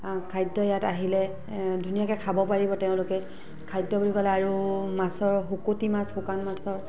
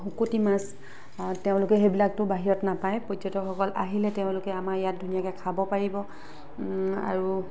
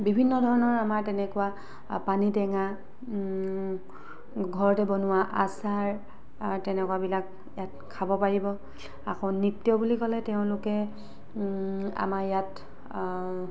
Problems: constant background noise